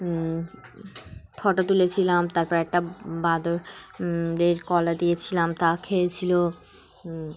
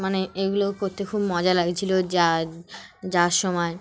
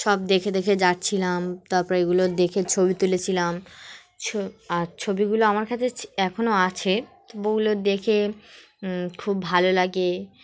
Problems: none marked